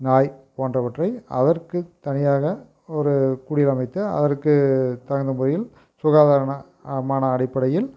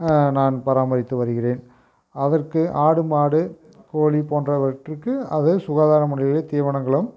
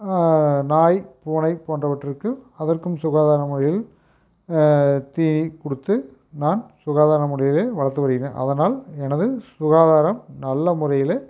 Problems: none marked